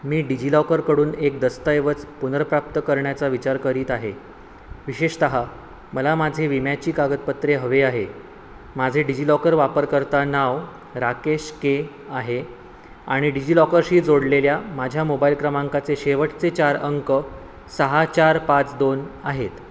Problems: constant background noise